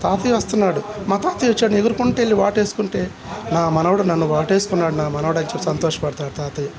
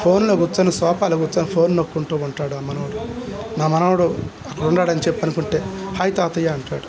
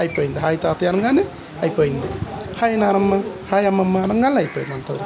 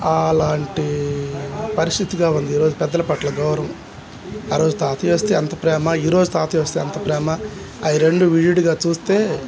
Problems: none marked